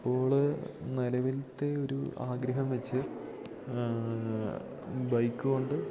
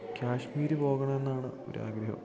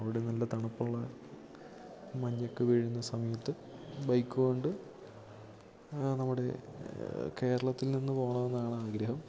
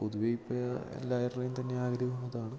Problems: none marked